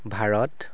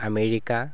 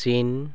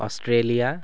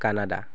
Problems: constant background noise